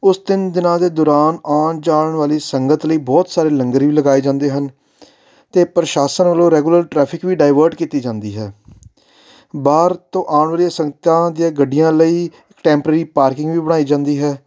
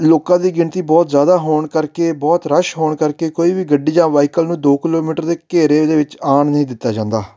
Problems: background sounds at intervals